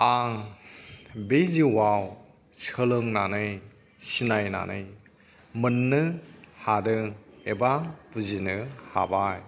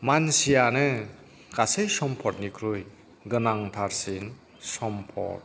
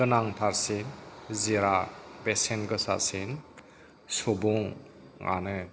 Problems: background sounds at intervals, background conversations at intervals